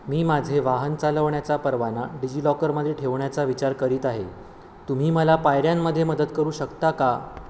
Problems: constant background noise